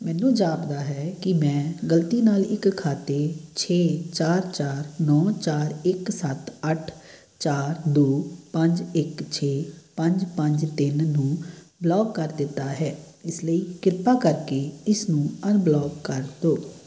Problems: background sounds at intervals